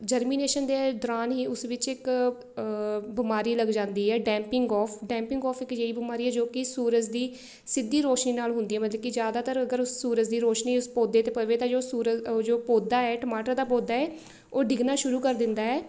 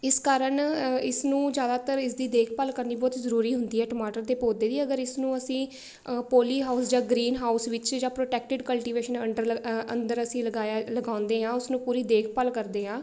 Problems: none marked